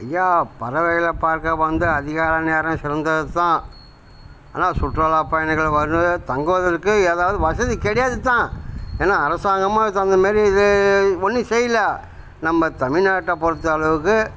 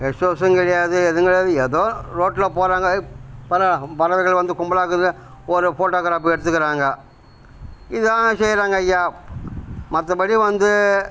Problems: background sounds at intervals